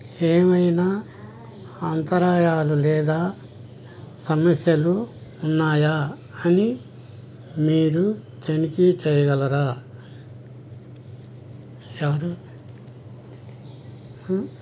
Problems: background sounds at intervals